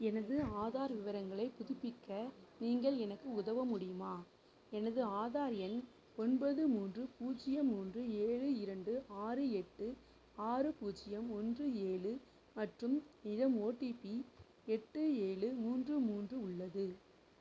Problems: background conversations at intervals, low volume